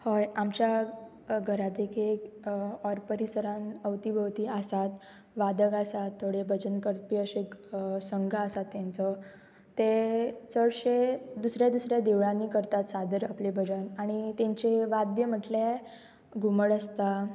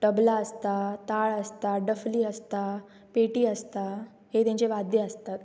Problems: background sounds at intervals